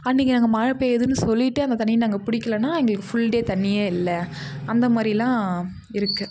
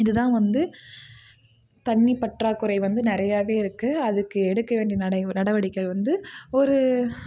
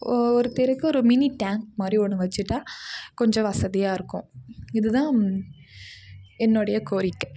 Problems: none marked